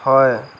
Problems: constant background noise